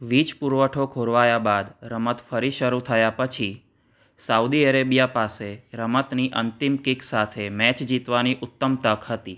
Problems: none marked